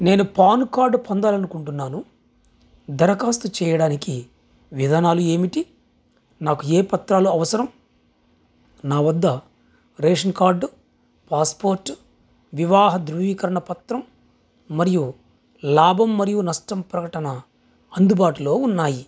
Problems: constant background noise